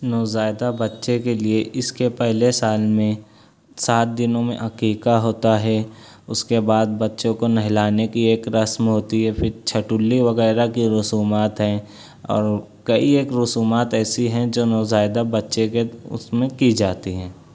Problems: none marked